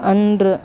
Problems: continuous background conversations